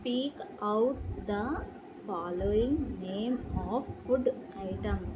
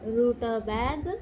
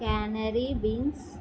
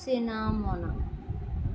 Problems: none marked